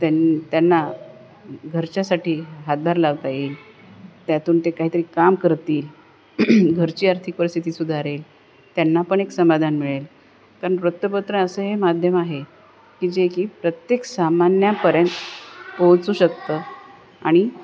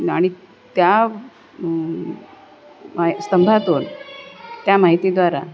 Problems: none marked